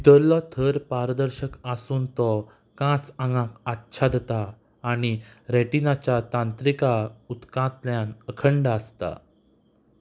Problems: background sounds at intervals